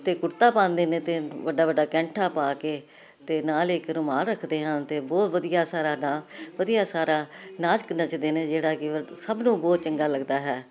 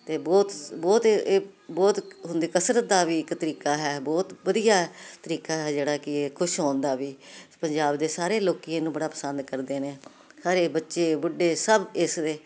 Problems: none marked